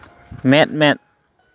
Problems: none marked